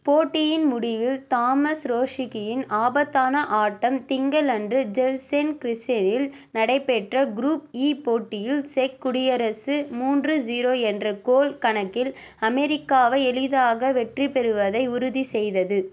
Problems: none marked